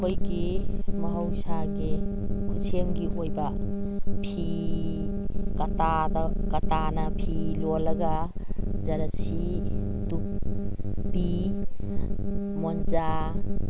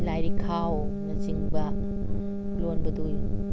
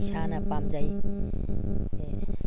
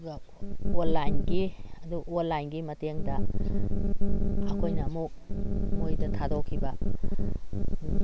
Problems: constant background noise